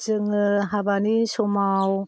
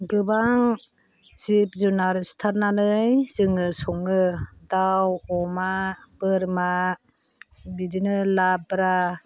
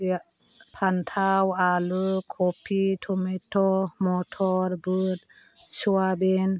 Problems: low volume